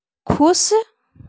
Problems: background sounds at intervals